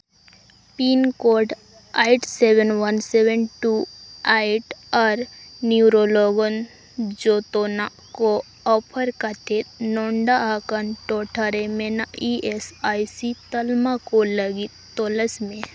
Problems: constant background noise